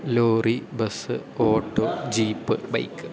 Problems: low volume